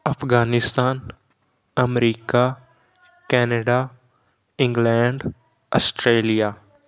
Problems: background conversations at intervals